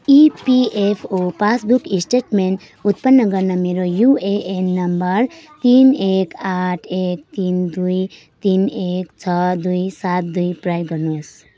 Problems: none marked